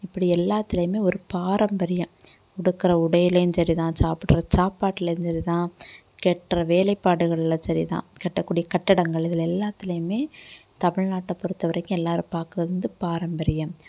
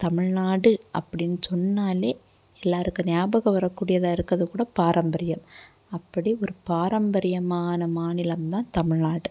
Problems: none marked